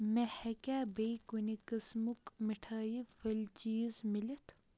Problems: none marked